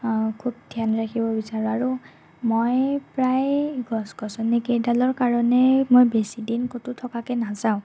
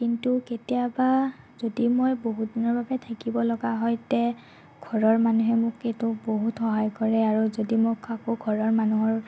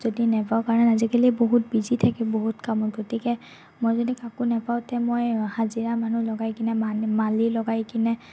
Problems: none marked